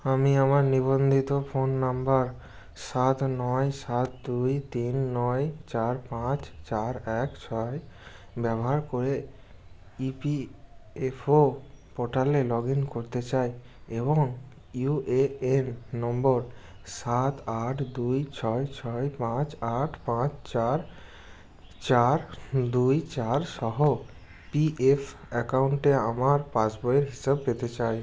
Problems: none marked